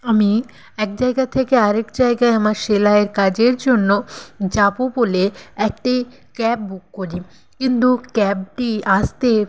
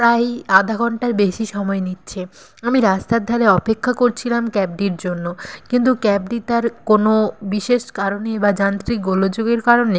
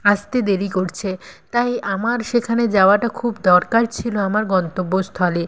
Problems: constant background noise